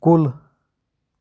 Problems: none marked